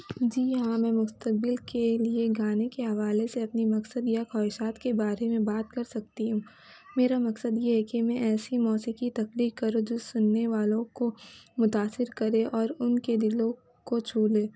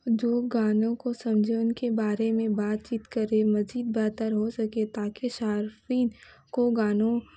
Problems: constant background noise